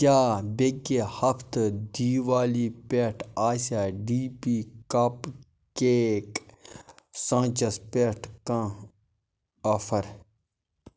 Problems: none marked